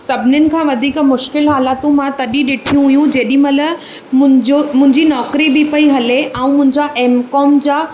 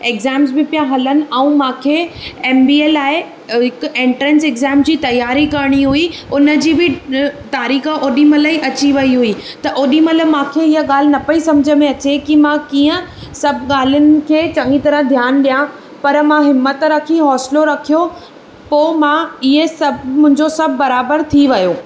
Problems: none marked